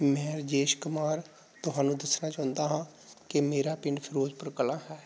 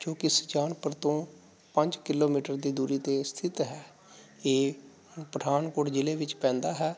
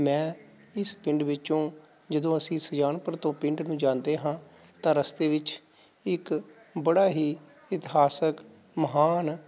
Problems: background sounds at intervals